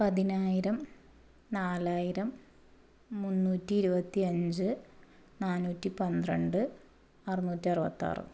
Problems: low volume